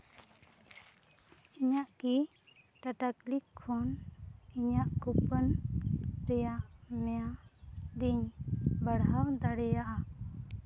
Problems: constant background noise